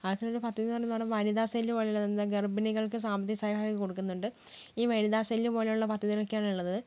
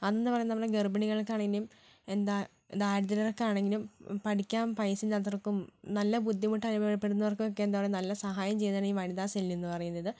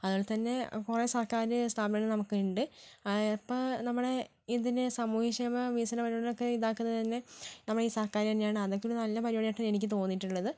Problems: low volume